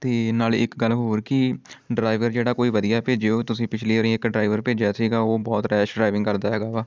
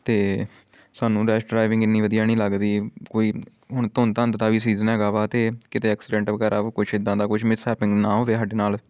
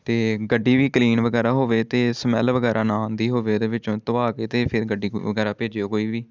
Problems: background sounds at intervals